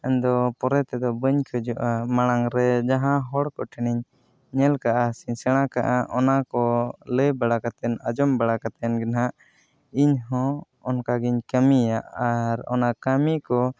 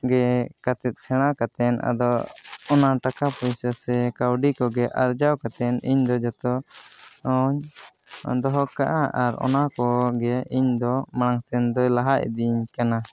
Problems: background conversations at intervals